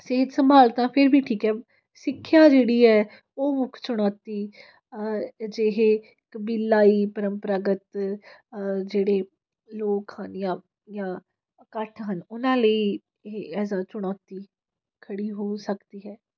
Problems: none marked